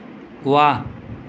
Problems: constant background noise